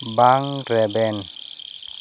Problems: constant background noise